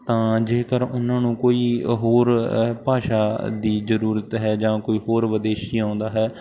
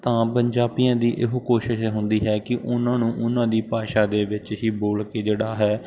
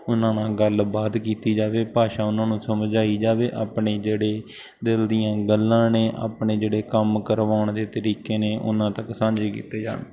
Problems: none marked